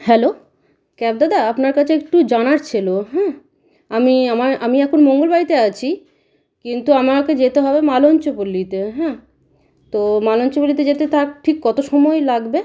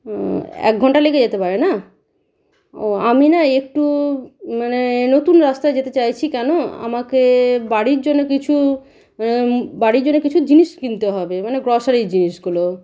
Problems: constant background noise, background conversations at intervals